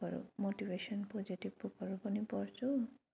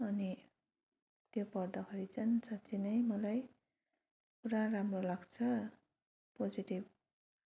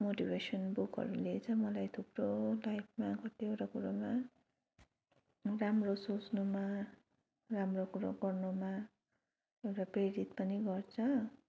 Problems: none marked